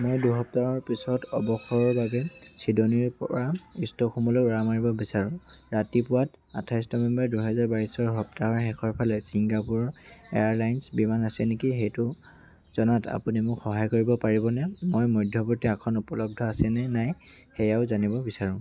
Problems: constant background noise